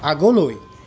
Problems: constant background noise